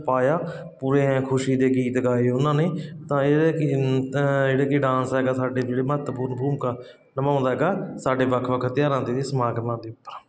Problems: constant background noise